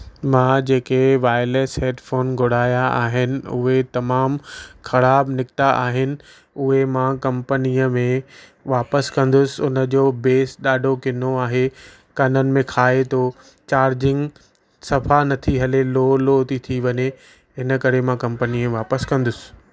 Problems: background conversations at intervals